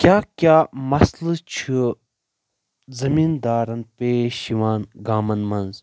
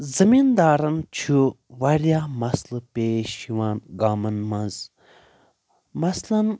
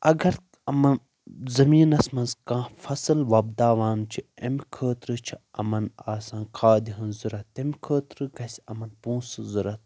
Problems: constant background noise